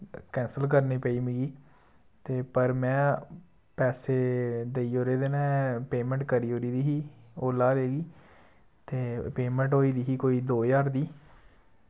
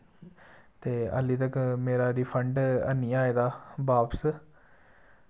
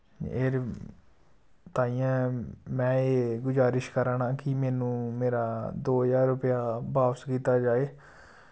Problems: none marked